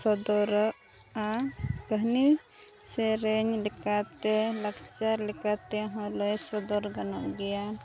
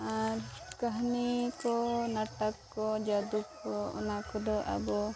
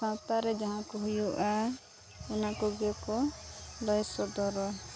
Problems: constant background noise